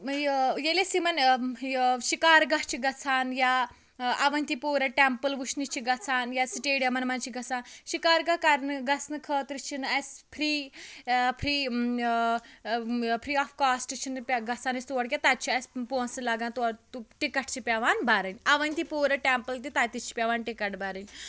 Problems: background sounds at intervals, background conversations at intervals